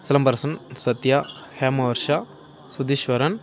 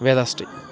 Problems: continuous background conversations